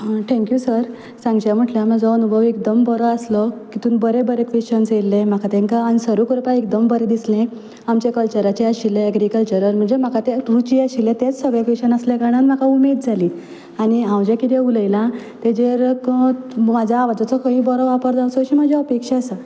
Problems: none marked